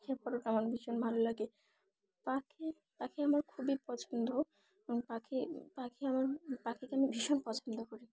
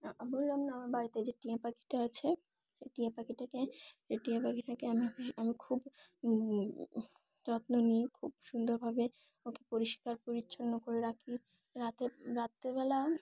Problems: none marked